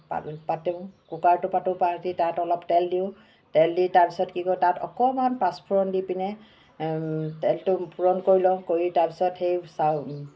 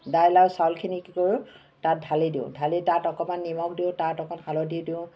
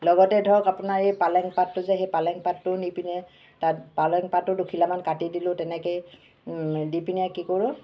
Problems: constant background noise